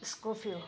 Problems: none marked